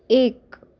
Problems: background sounds at intervals